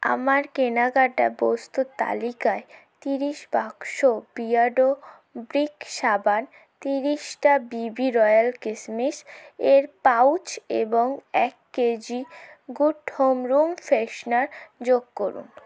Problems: constant background noise